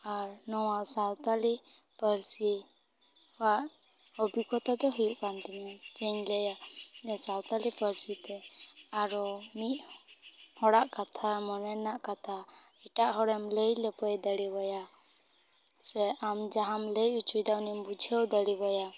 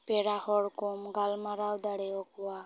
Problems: none marked